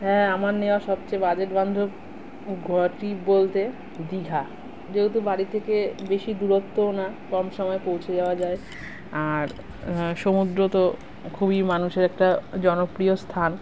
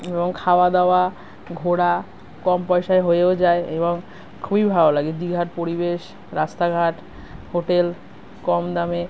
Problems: none marked